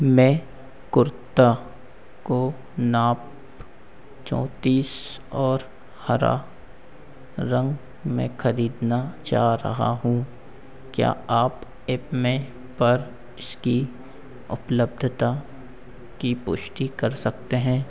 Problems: constant background noise, echo